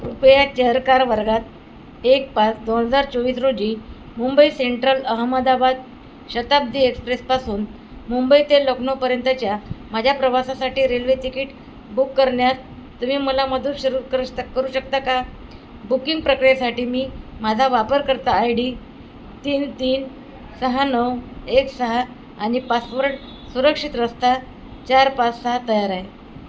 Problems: constant background noise